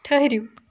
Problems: background sounds at intervals